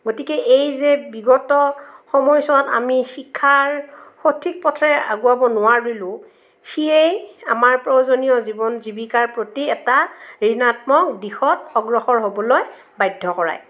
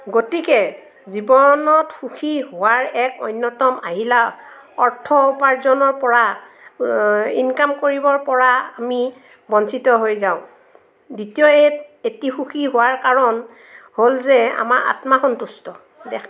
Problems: background sounds at intervals, background conversations at intervals